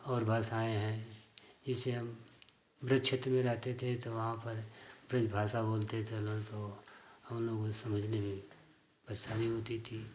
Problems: constant background noise